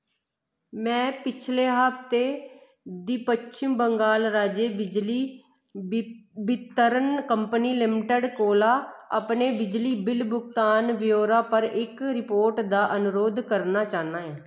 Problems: echo